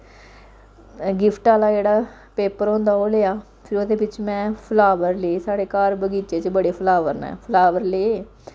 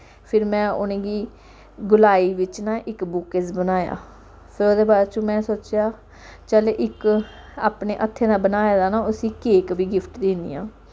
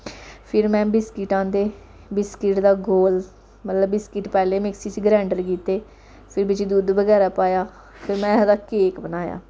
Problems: background sounds at intervals